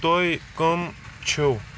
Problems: constant background noise